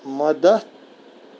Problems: constant background noise